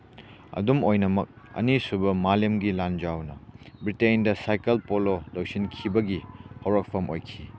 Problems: background sounds at intervals